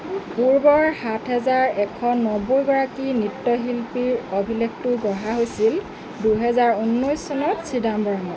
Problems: constant background noise, background conversations at intervals